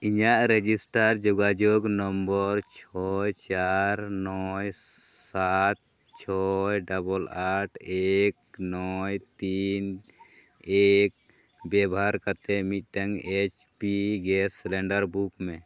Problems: none marked